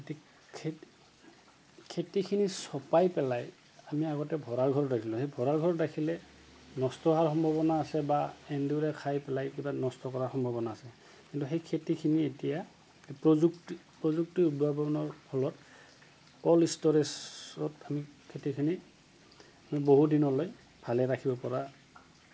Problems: constant background noise